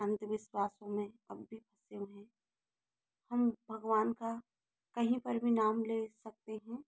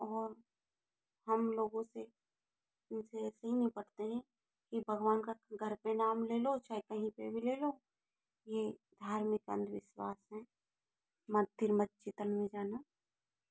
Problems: low volume